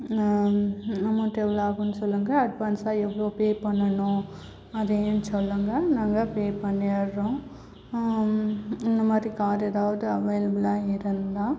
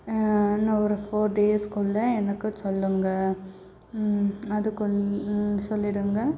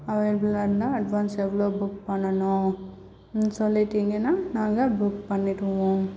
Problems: background sounds at intervals, low volume